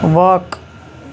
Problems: constant background noise